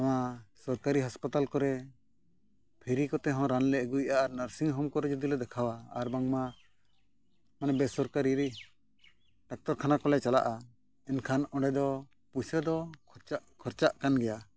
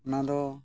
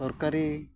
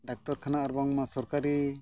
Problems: none marked